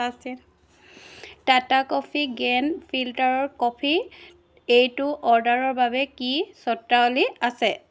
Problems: none marked